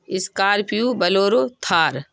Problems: constant background noise